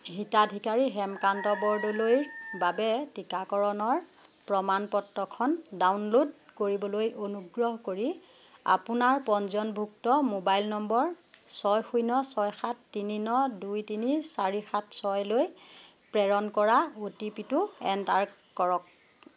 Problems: none marked